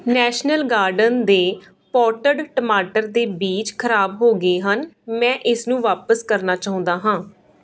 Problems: background sounds at intervals